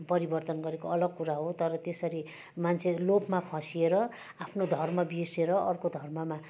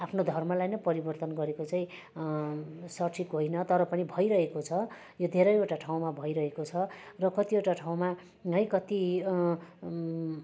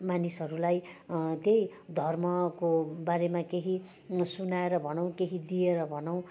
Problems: none marked